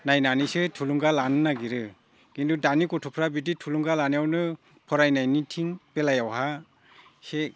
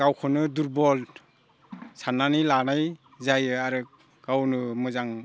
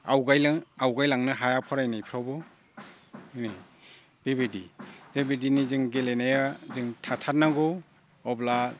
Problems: low volume